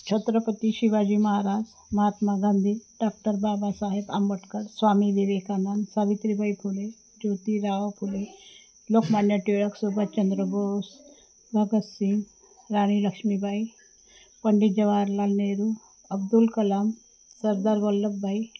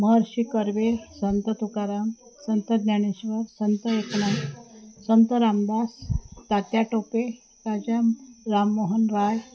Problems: constant background noise, background conversations at intervals, low volume